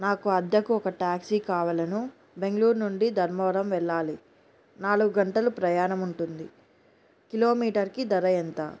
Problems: background sounds at intervals